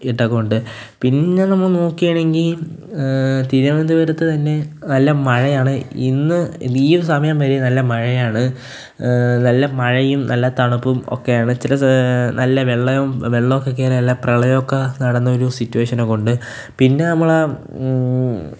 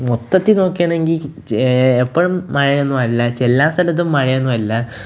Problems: none marked